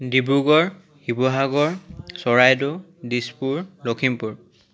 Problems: continuous background conversations